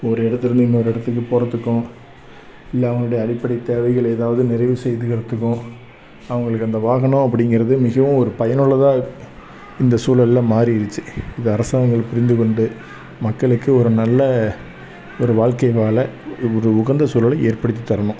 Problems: background sounds at intervals, background conversations at intervals